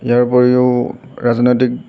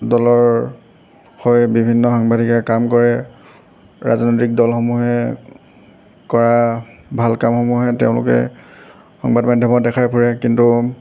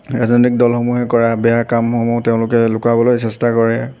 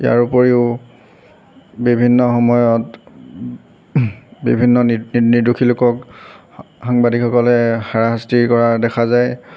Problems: background sounds at intervals